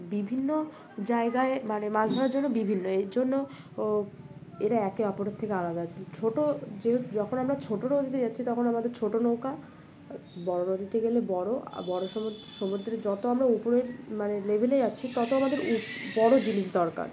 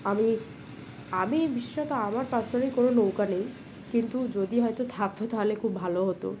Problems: none marked